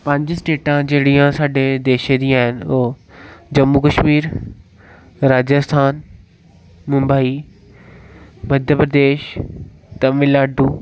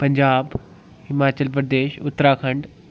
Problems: none marked